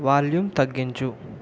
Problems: none marked